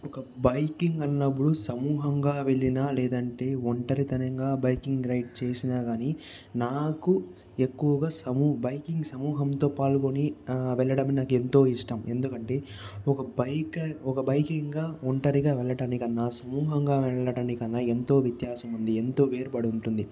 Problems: background sounds at intervals